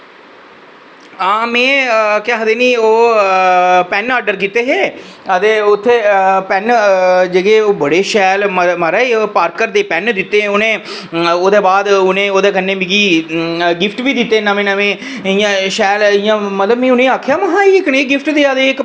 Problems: none marked